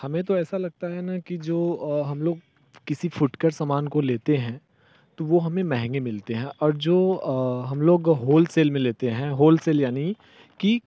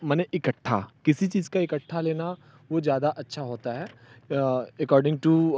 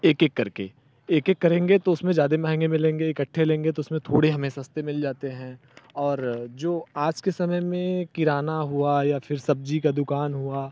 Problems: none marked